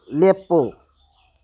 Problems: low volume